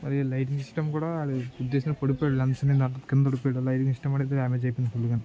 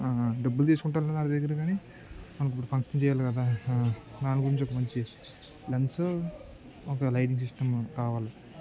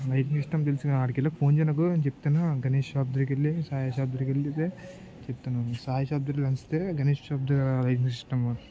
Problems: constant background noise, continuous background conversations